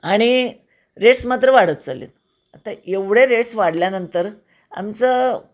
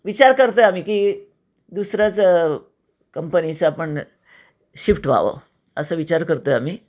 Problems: constant background noise, echo